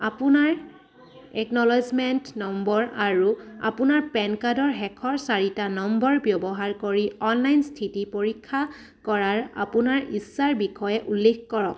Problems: background sounds at intervals, background conversations at intervals